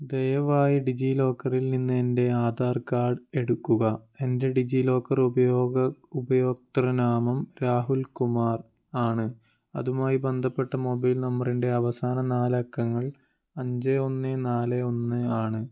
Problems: none marked